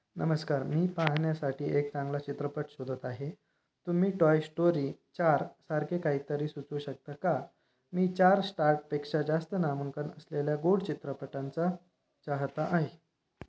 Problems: none marked